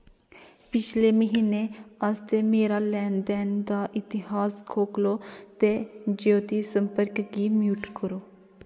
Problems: background sounds at intervals